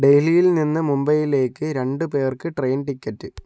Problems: none marked